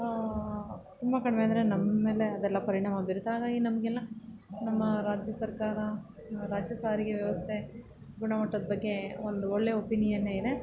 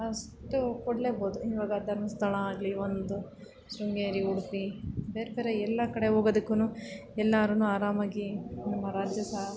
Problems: background sounds at intervals